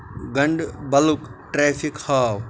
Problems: constant background noise